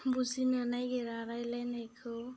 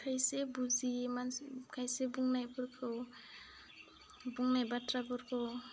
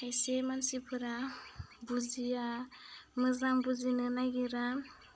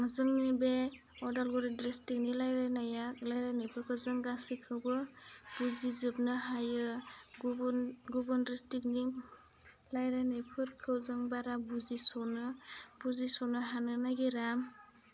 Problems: low volume